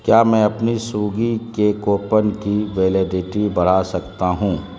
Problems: constant background noise